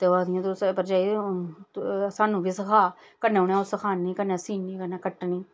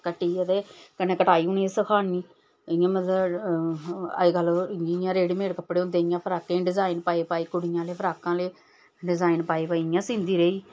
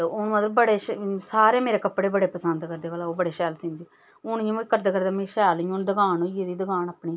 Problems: none marked